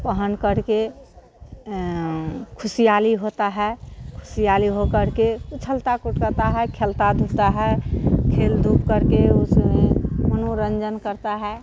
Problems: constant background noise